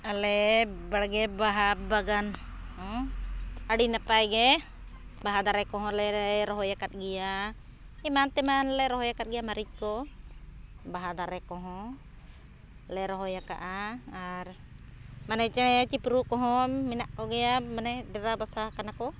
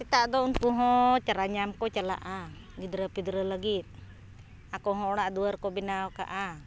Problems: background sounds at intervals